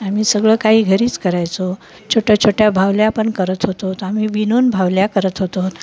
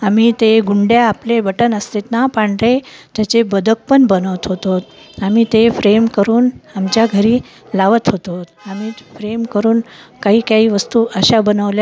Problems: constant background noise, continuous background conversations